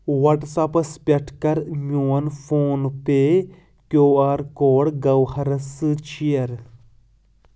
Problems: none marked